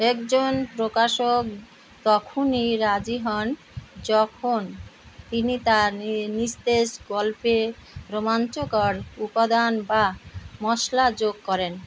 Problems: none marked